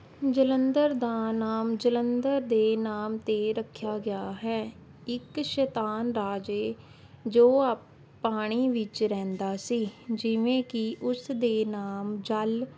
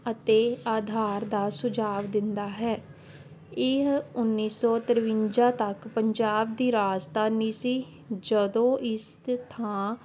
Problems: none marked